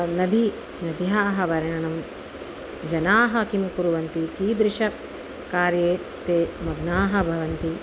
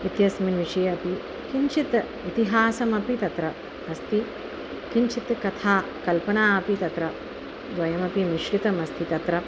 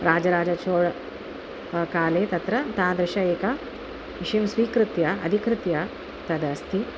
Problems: constant background noise